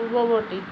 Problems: constant background noise